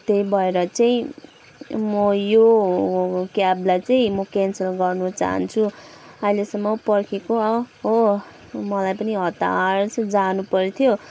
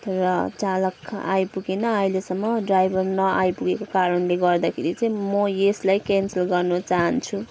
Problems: background sounds at intervals